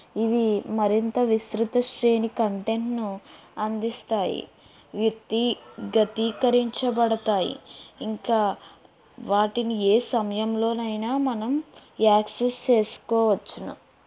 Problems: background sounds at intervals